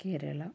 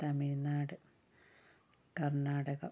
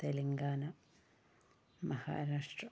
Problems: low volume